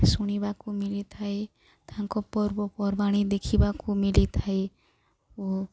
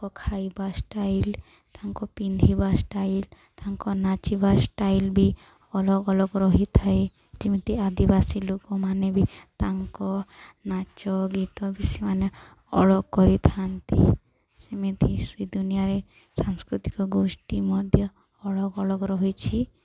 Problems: none marked